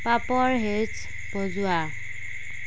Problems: constant background noise